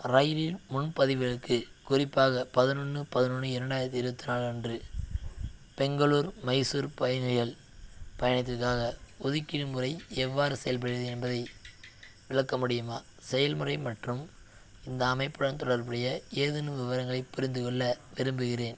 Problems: none marked